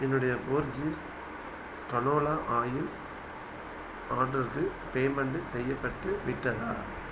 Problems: constant background noise